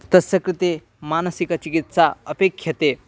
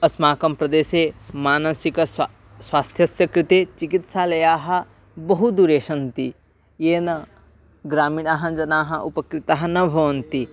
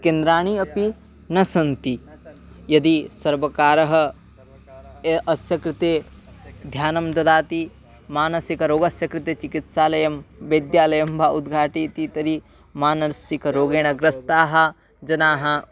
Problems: echo